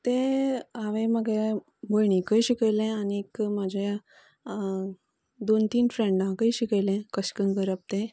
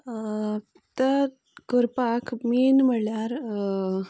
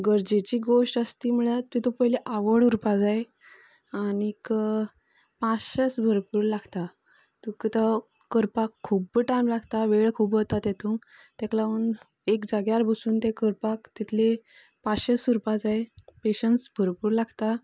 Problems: constant background noise